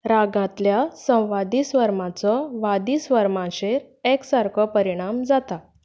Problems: none marked